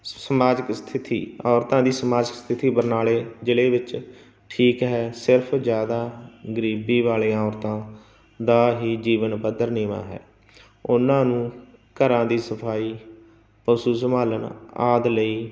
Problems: none marked